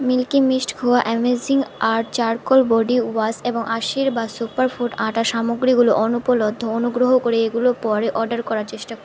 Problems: none marked